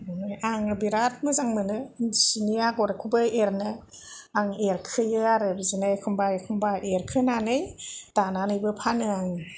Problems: none marked